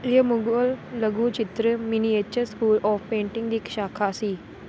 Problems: constant background noise